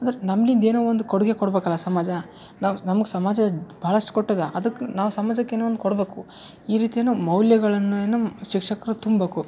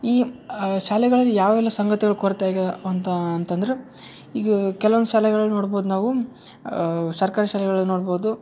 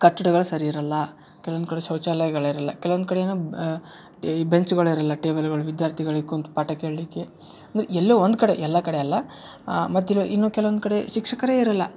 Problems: none marked